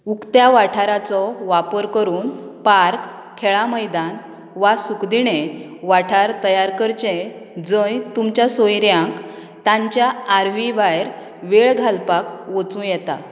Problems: none marked